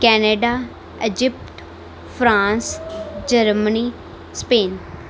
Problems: none marked